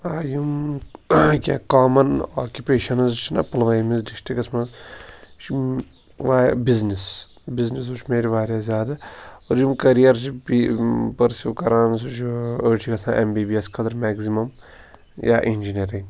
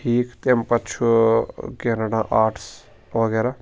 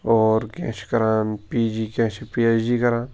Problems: constant background noise